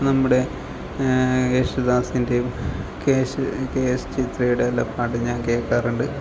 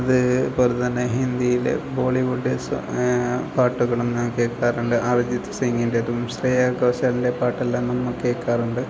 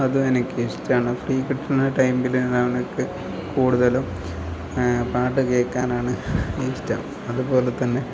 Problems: none marked